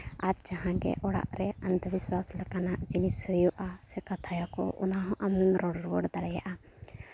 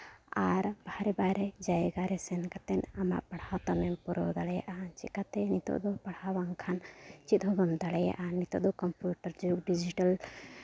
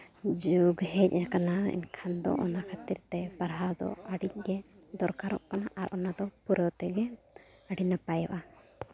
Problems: none marked